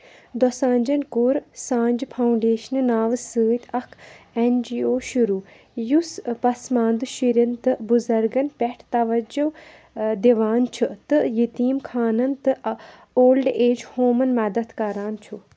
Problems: background sounds at intervals